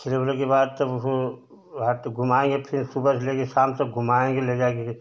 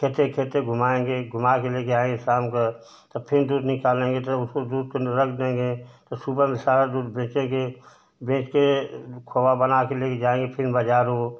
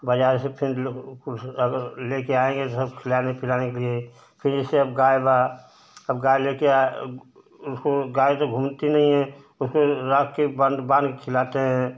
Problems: constant background noise